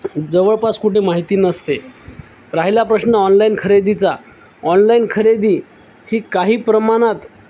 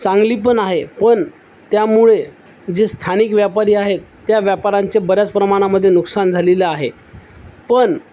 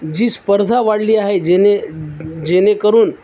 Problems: constant background noise